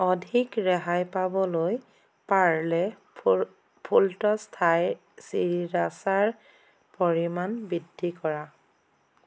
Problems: constant background noise